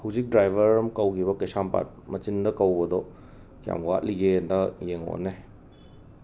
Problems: background sounds at intervals